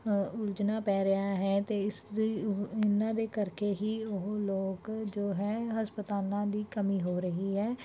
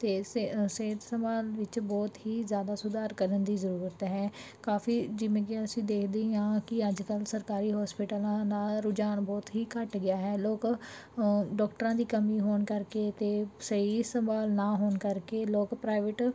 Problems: background sounds at intervals